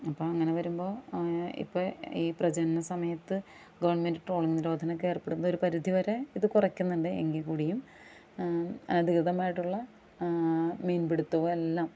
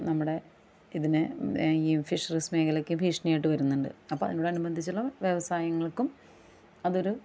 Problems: background conversations at intervals